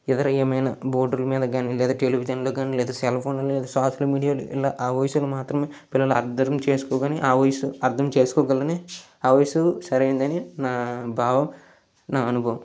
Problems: background sounds at intervals